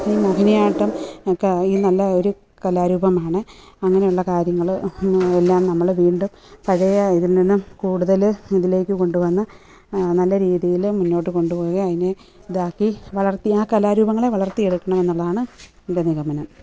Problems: background sounds at intervals